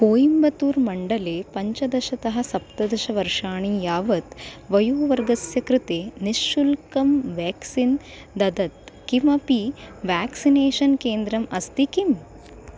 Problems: constant background noise